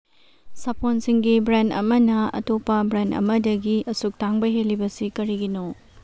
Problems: none marked